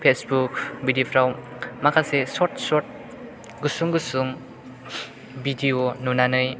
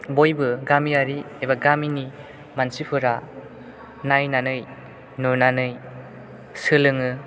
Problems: none marked